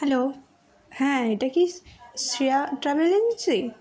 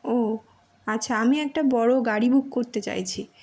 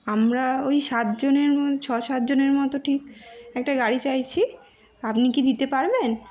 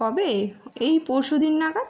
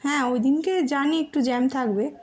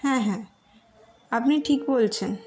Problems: background sounds at intervals